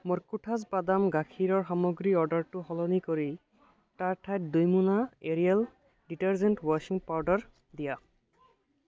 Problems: constant background noise